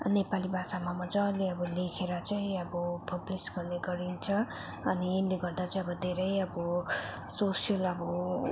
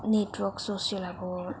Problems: constant background noise